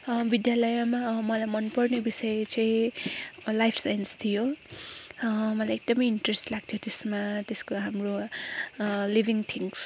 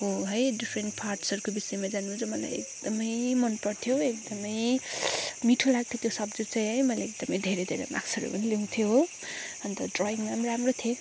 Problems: background sounds at intervals